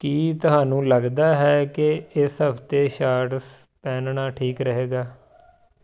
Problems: background sounds at intervals